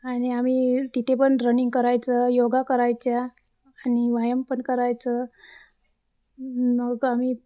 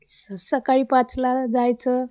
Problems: constant background noise, background conversations at intervals